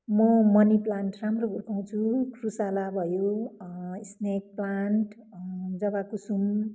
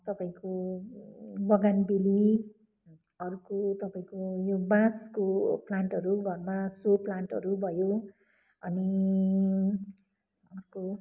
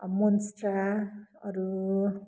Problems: background sounds at intervals